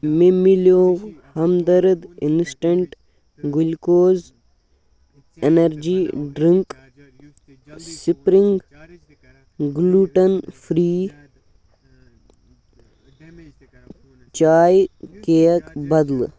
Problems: background sounds at intervals, background conversations at intervals